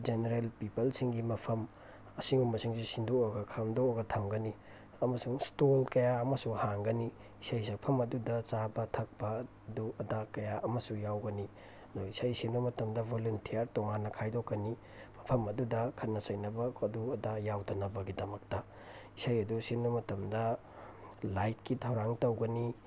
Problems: background sounds at intervals, low volume